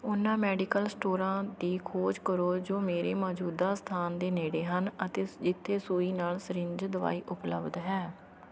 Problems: none marked